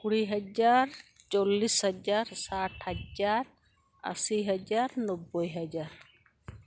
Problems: none marked